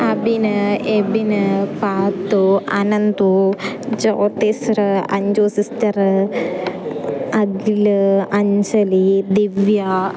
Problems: constant background noise, continuous background conversations, low volume